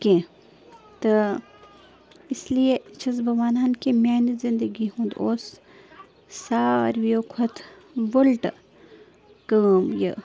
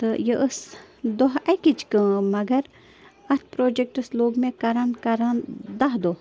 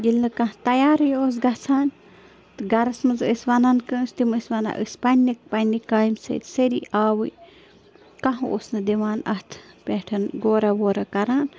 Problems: constant background noise